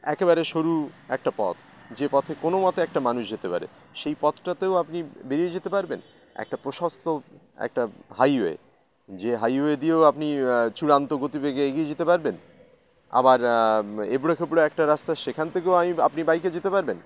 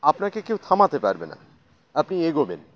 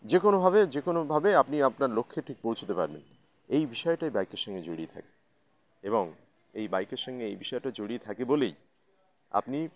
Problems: constant background noise